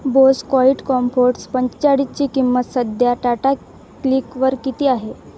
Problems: constant background noise